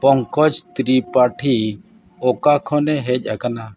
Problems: background sounds at intervals, background conversations at intervals